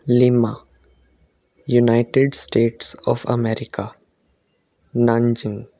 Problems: constant background noise